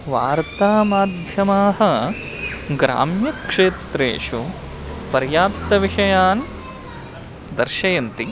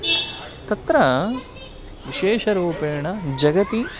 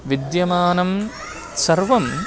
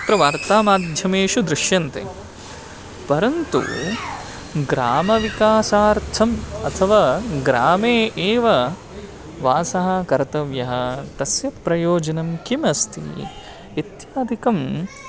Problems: constant background noise, continuous background conversations